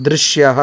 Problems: constant background noise